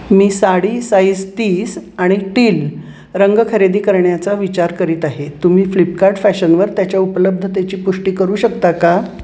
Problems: constant background noise